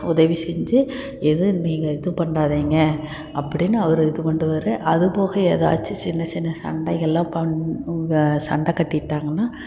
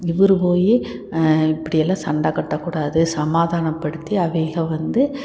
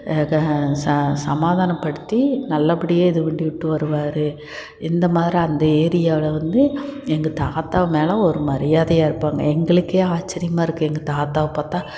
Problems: constant background noise